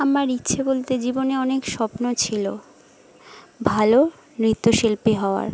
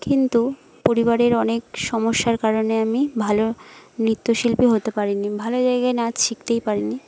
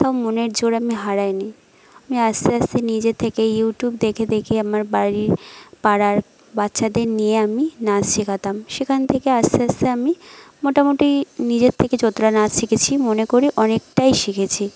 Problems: background sounds at intervals